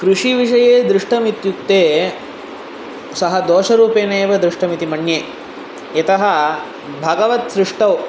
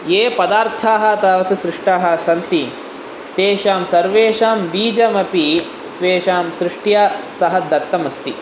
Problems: constant background noise